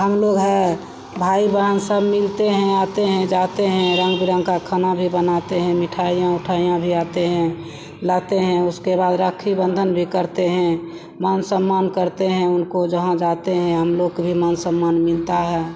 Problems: none marked